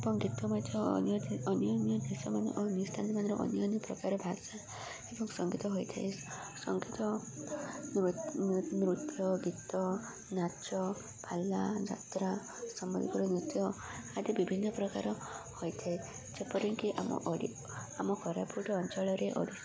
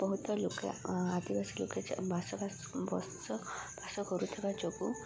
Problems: constant background noise, continuous background conversations